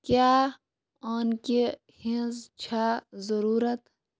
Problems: background sounds at intervals